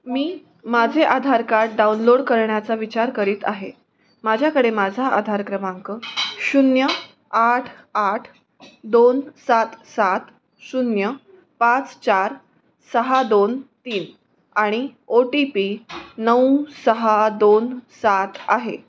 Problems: none marked